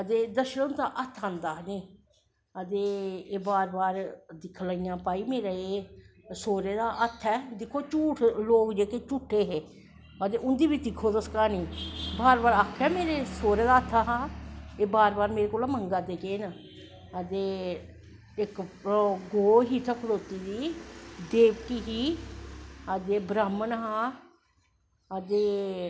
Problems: echo